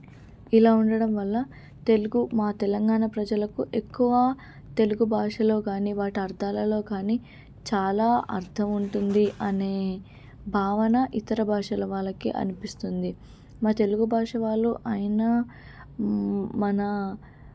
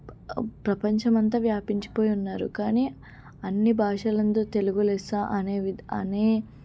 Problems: low volume